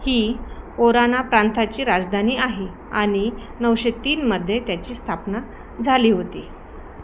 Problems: constant background noise